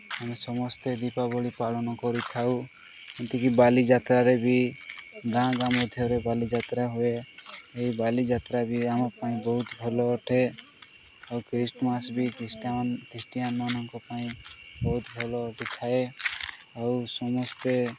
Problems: none marked